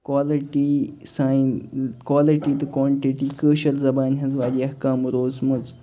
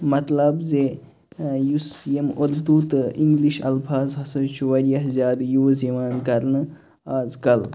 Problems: constant background noise, background conversations at intervals